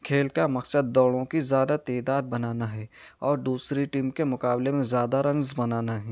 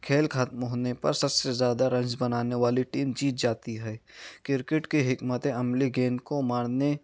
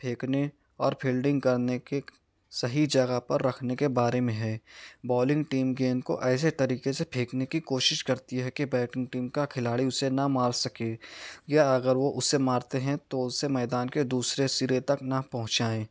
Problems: none marked